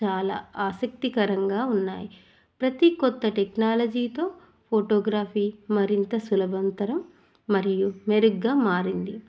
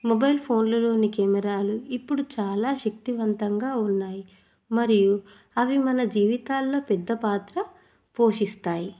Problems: none marked